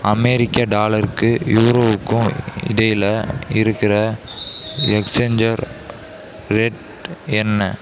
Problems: background conversations at intervals